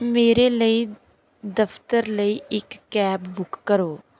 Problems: none marked